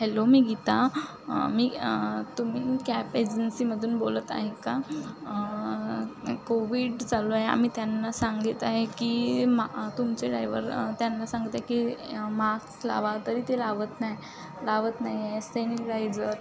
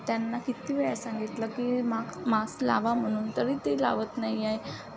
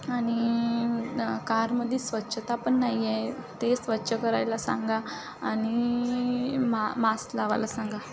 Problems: background sounds at intervals